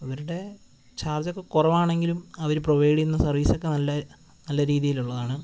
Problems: constant background noise